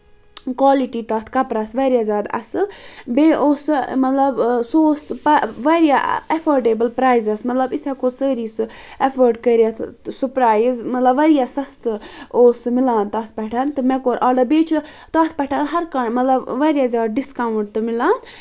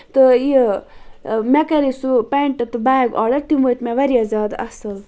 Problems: constant background noise